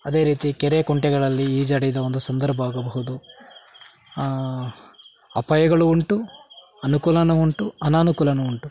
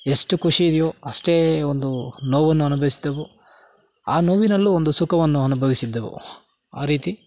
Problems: background sounds at intervals